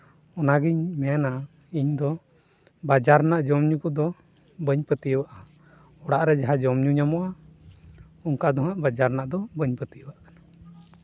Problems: background sounds at intervals